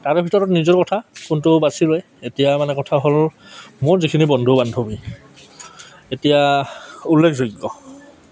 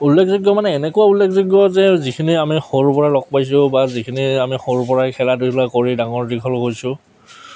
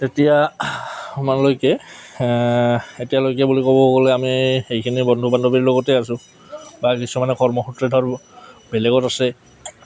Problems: none marked